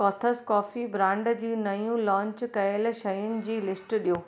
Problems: background sounds at intervals, echo